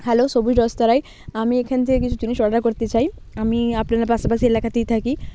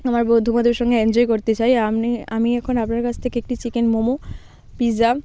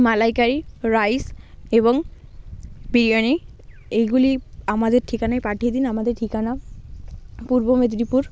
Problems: constant background noise